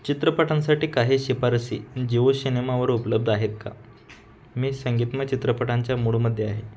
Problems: background sounds at intervals